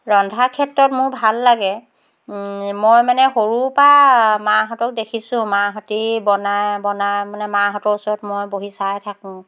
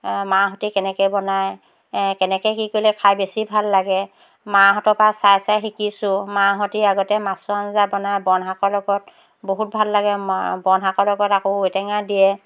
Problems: none marked